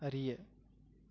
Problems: low volume